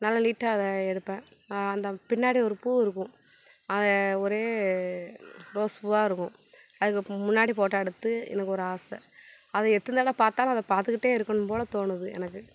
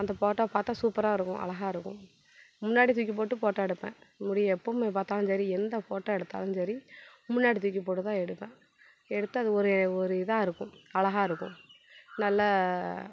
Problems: background sounds at intervals